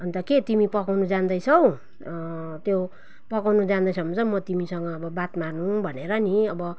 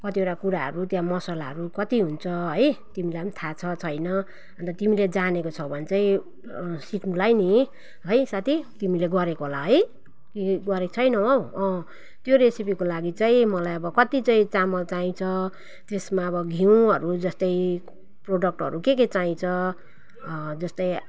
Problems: none marked